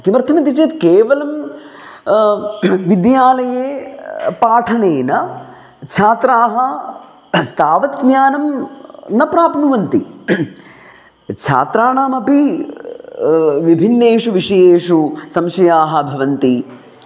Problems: none marked